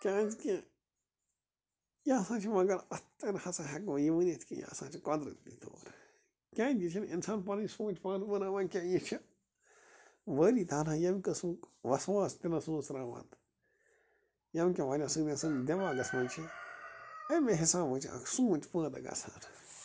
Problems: constant background noise